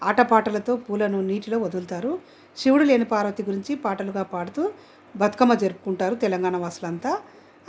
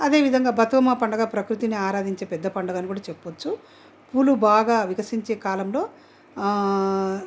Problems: background sounds at intervals